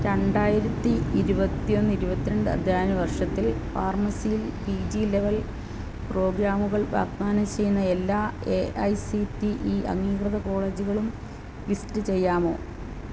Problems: constant background noise